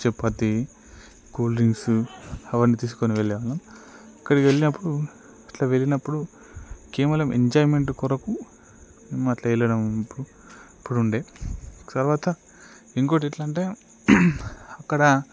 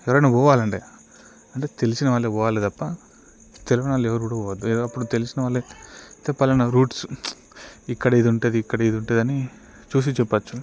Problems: none marked